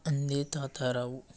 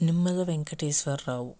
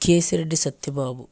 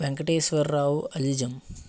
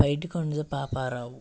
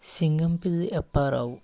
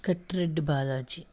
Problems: none marked